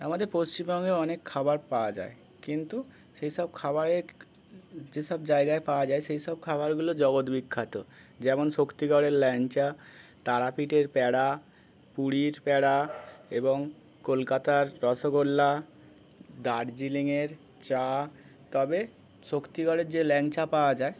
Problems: constant background noise, continuous background conversations